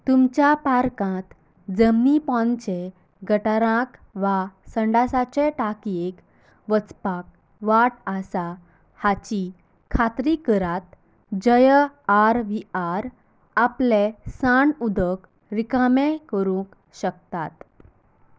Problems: none marked